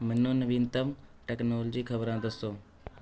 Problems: background conversations at intervals